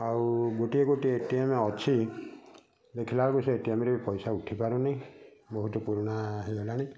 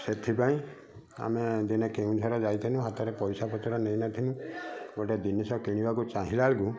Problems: constant background noise, continuous background conversations